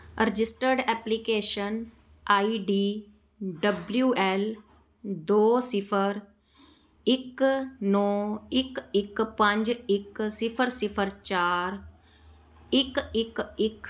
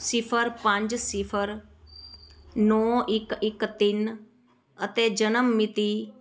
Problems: background conversations at intervals